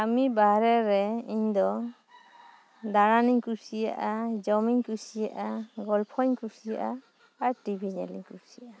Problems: none marked